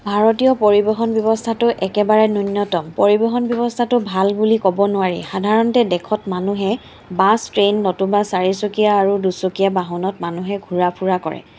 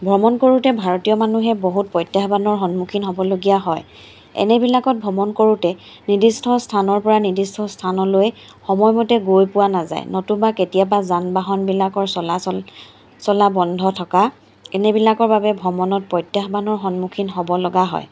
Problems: constant background noise